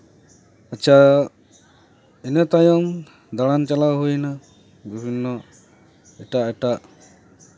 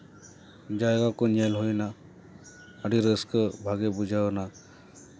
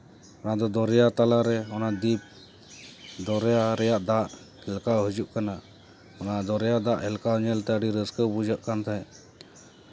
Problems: none marked